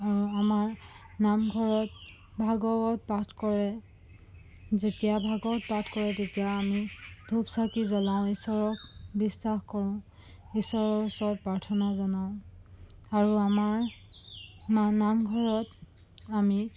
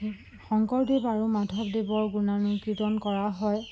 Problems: constant background noise